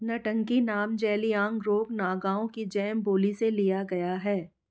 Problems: none marked